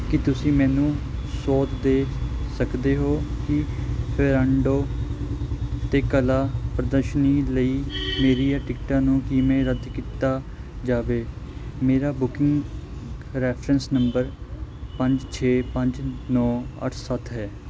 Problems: constant background noise